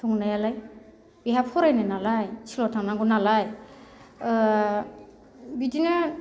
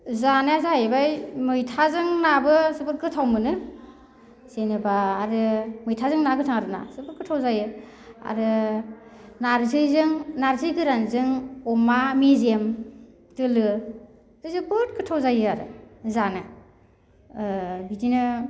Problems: none marked